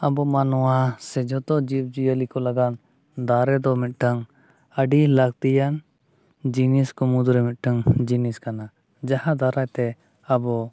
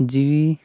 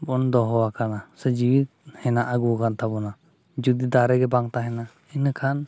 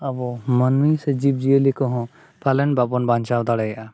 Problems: none marked